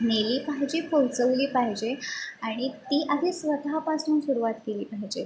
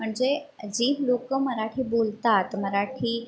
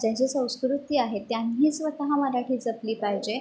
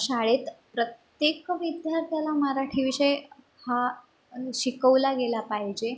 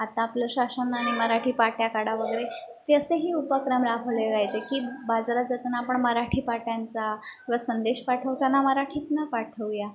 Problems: none marked